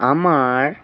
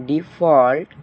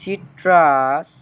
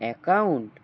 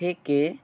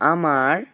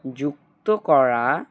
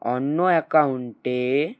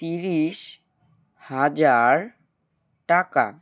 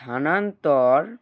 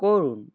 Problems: background sounds at intervals